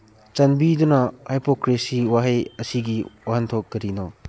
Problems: none marked